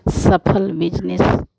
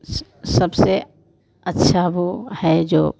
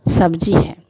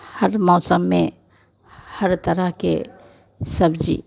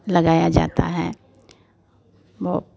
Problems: none marked